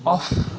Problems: none marked